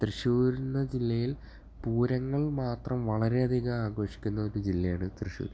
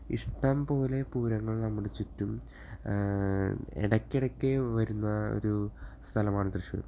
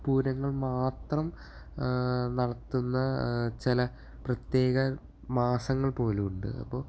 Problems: none marked